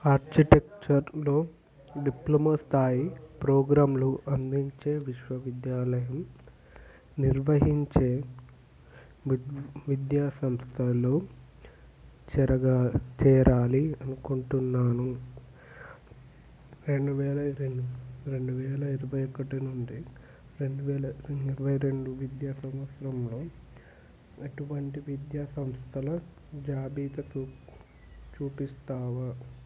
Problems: constant background noise, background conversations at intervals, low volume